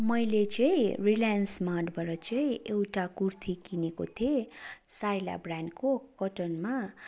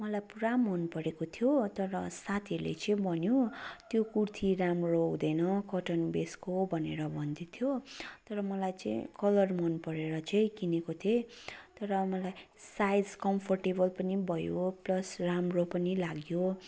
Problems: continuous background conversations